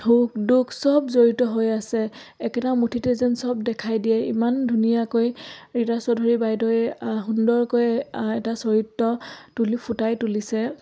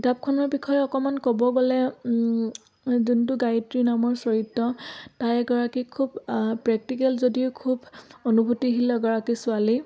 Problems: background sounds at intervals